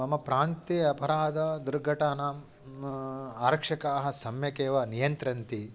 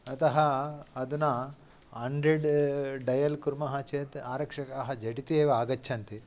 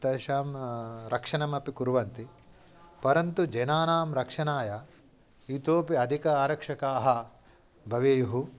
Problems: none marked